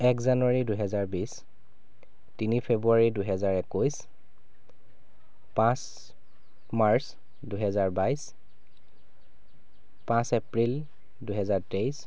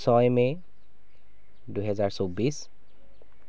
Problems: background sounds at intervals